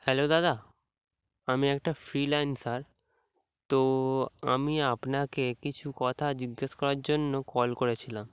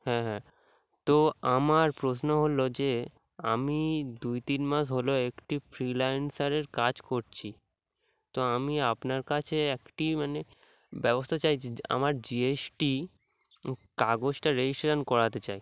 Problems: background sounds at intervals